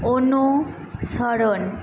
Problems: none marked